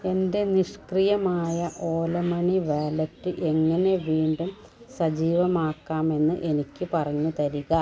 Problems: none marked